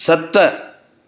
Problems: none marked